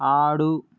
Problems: background conversations at intervals